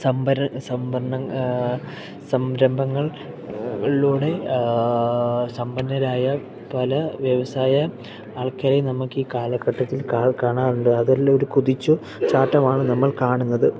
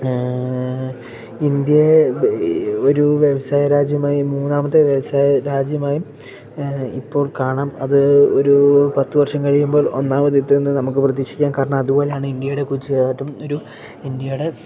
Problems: background sounds at intervals